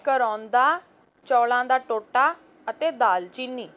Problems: none marked